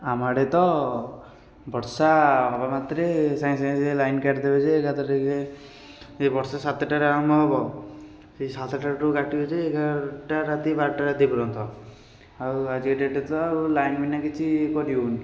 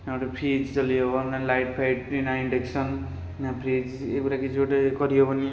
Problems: none marked